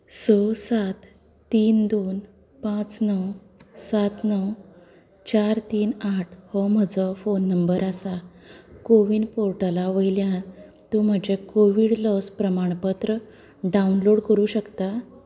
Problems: low volume